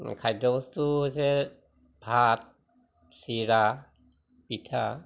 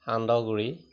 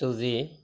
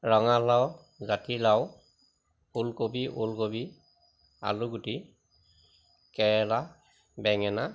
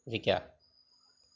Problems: constant background noise